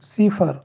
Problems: none marked